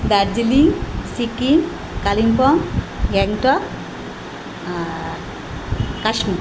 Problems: none marked